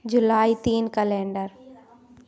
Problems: background sounds at intervals, background conversations at intervals